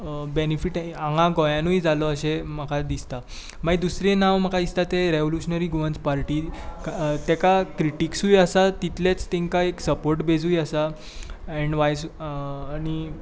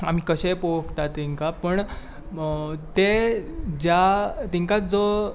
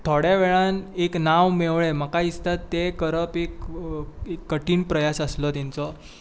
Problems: none marked